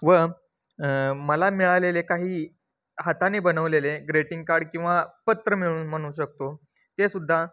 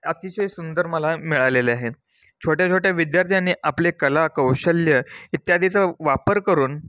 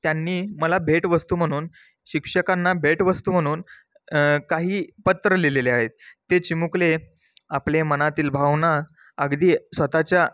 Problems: none marked